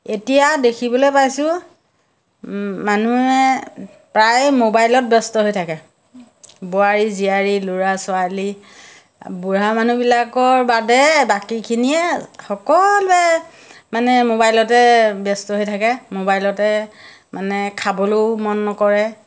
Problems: none marked